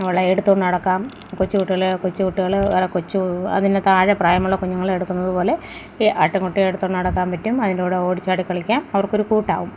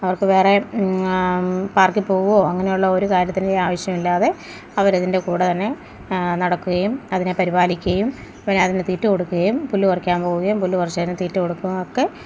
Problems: none marked